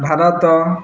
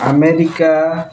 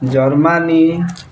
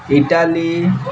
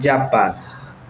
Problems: constant background noise, background conversations at intervals